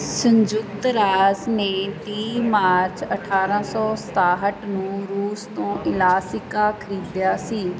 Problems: background conversations at intervals